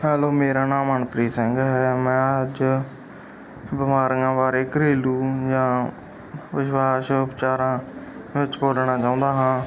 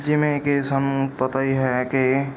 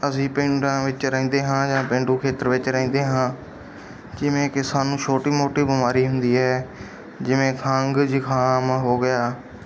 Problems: background sounds at intervals, background conversations at intervals